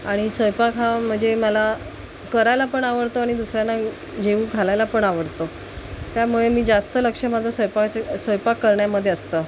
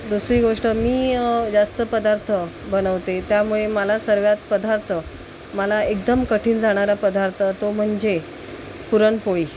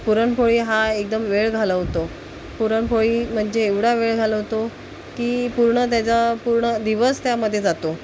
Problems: constant background noise